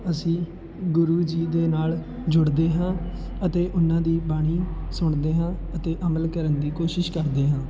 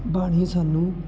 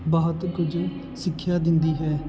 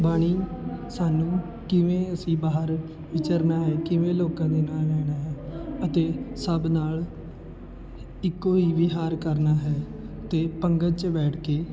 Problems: constant background noise, continuous background conversations